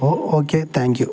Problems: none marked